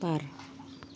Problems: low volume